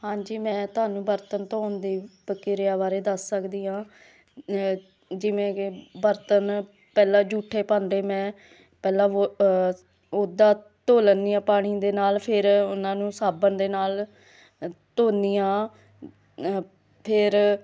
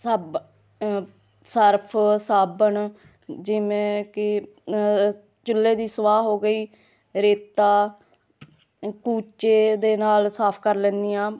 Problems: none marked